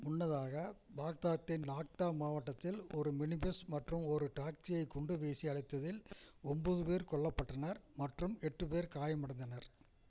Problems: low volume